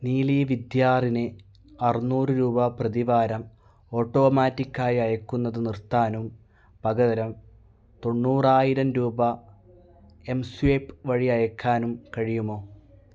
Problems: none marked